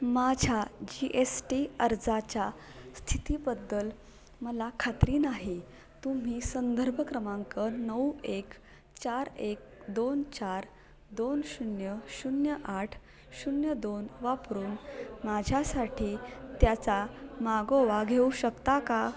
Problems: none marked